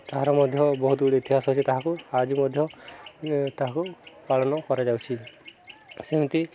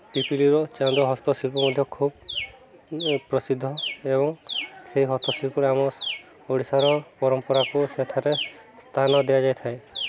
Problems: continuous background conversations